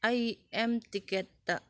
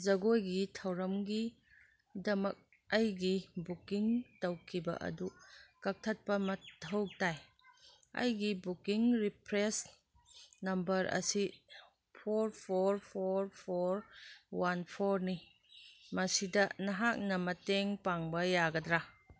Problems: none marked